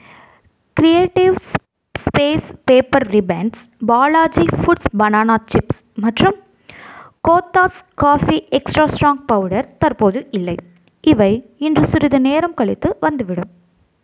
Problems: none marked